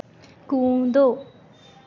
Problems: background sounds at intervals